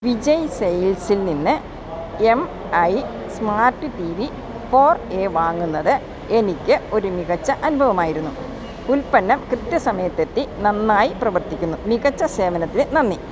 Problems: constant background noise